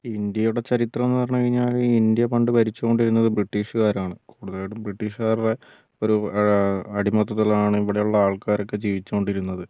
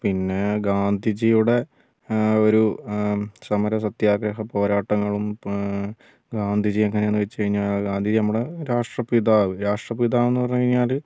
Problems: none marked